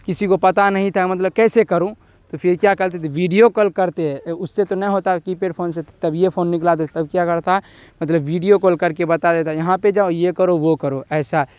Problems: constant background noise